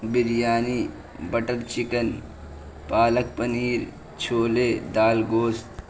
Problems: constant background noise